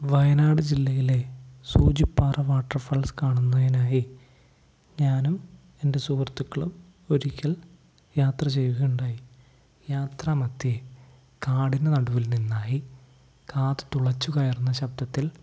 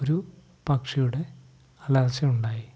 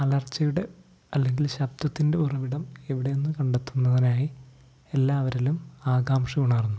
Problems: none marked